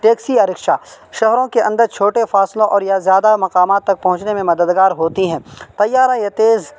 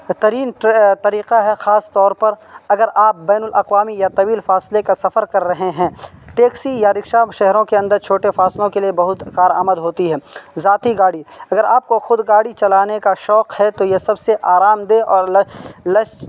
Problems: constant background noise